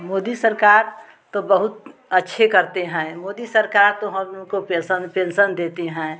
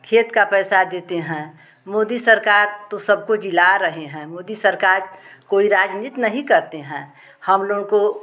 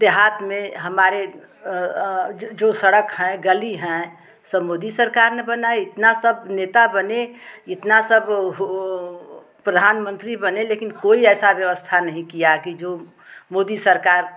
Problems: constant background noise, background conversations at intervals